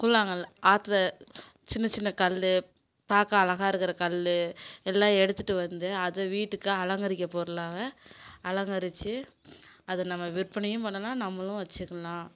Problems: constant background noise